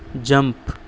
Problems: none marked